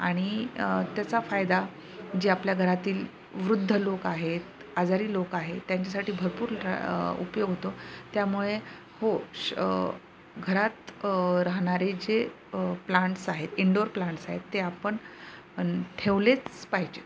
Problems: constant background noise, background conversations at intervals